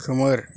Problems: constant background noise